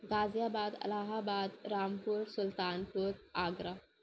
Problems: constant background noise, low volume